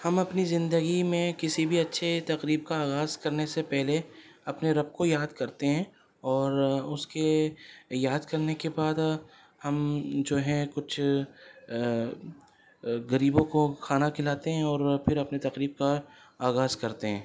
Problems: none marked